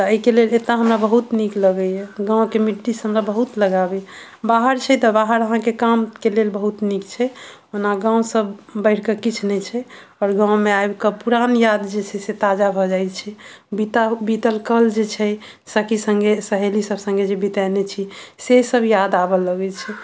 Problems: none marked